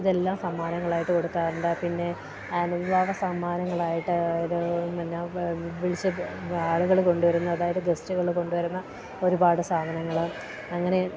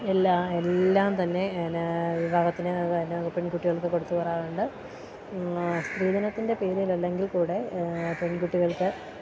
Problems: none marked